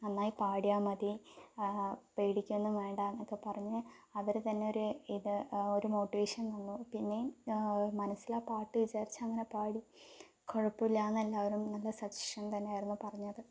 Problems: low volume